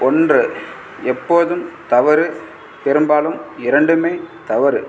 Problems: none marked